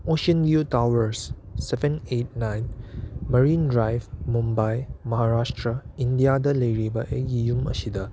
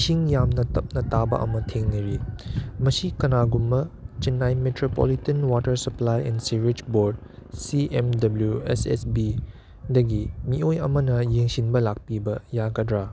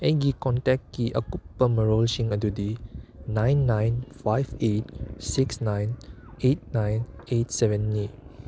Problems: background sounds at intervals